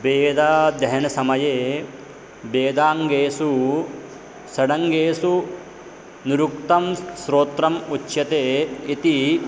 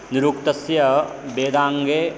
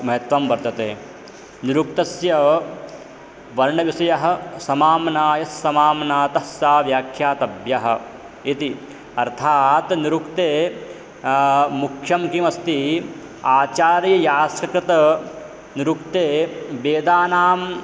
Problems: constant background noise